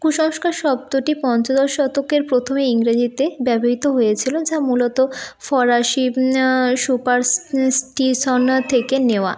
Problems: none marked